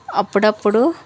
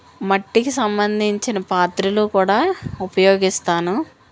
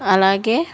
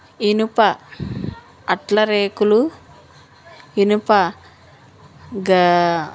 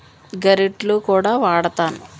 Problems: constant background noise